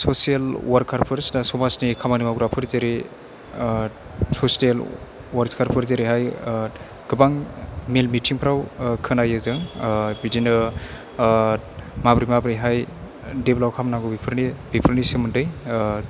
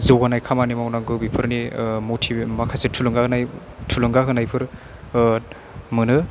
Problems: none marked